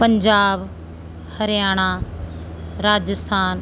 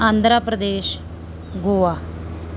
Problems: constant background noise